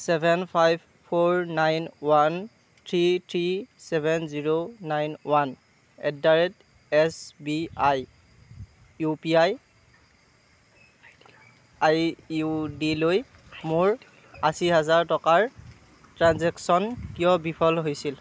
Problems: background conversations at intervals